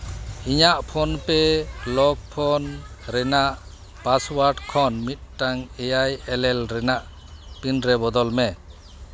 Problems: background sounds at intervals, background conversations at intervals